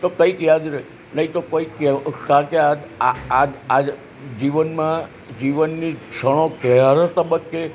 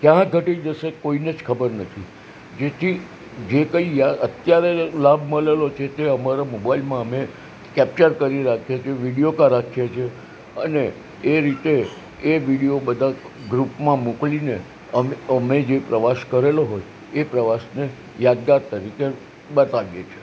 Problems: none marked